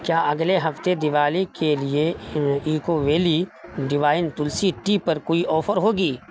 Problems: constant background noise